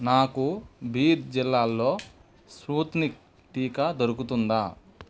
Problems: none marked